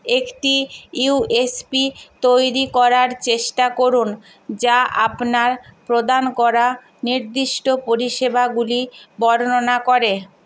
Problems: constant background noise